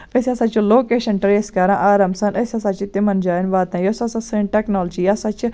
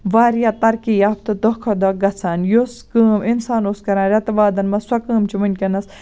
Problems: none marked